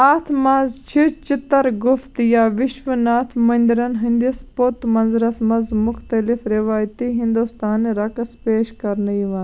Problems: constant background noise